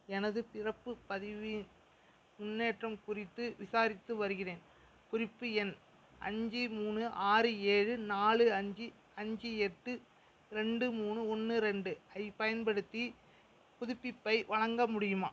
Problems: background sounds at intervals